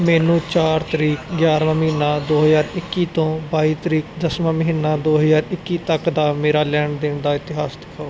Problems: background sounds at intervals